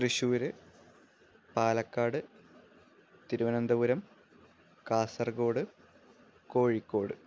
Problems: low volume